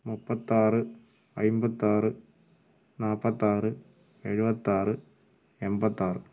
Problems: background sounds at intervals, low volume